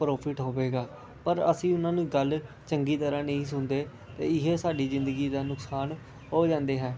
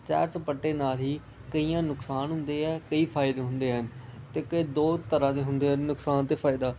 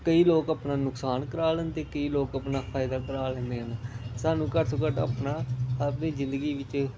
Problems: constant background noise